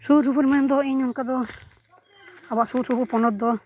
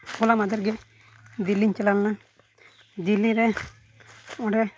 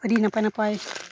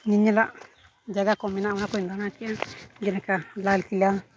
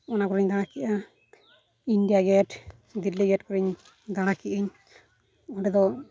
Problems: none marked